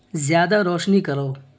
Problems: constant background noise